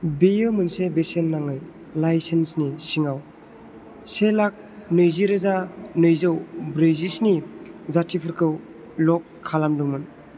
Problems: constant background noise